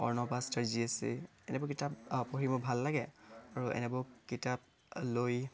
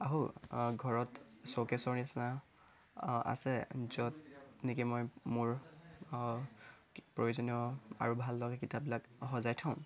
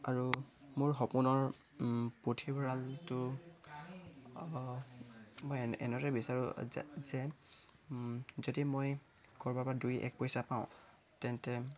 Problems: none marked